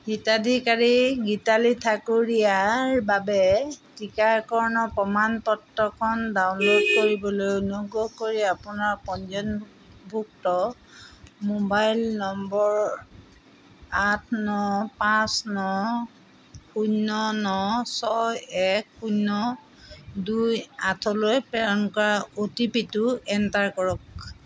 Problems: none marked